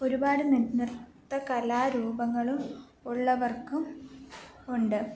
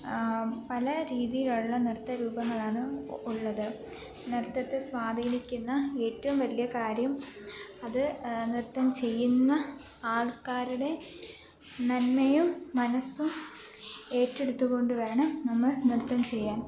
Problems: constant background noise